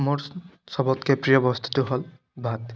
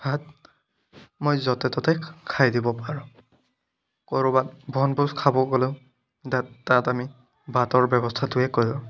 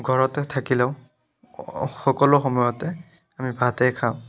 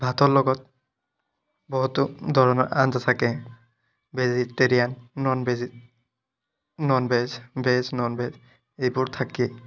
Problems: constant background noise